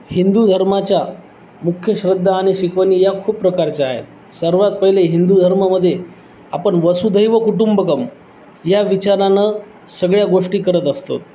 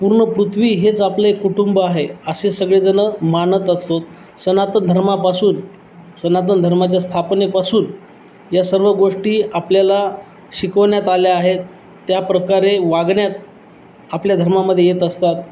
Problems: none marked